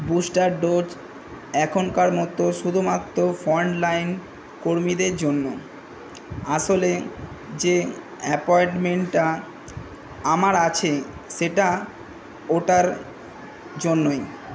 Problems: constant background noise